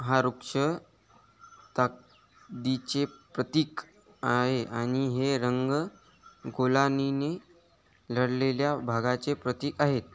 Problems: background sounds at intervals